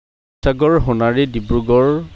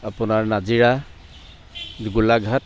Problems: constant background noise, background conversations at intervals